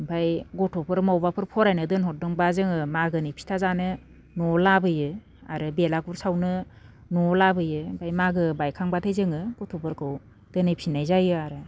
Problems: none marked